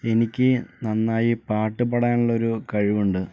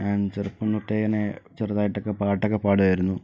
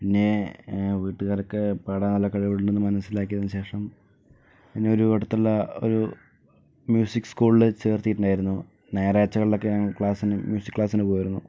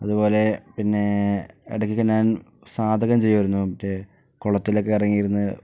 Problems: low volume